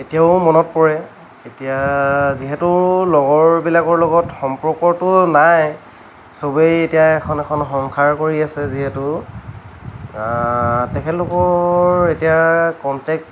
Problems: none marked